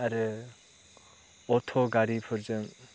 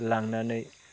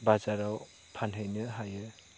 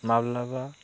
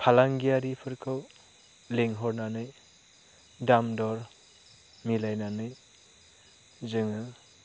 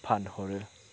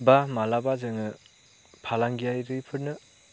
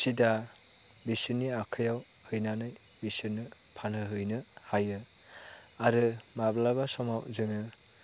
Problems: constant background noise